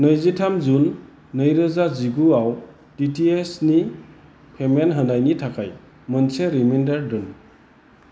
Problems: constant background noise